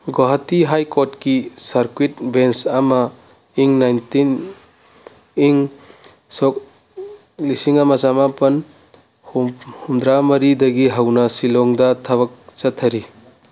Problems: background sounds at intervals